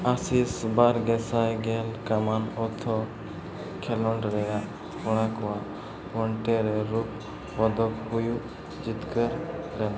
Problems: continuous background conversations